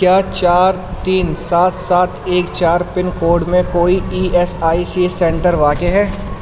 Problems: constant background noise